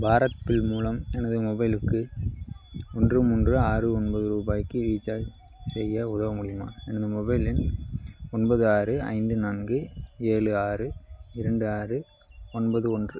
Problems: none marked